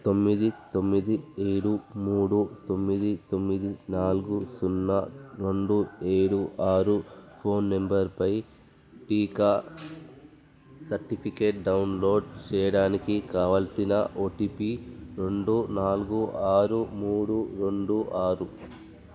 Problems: none marked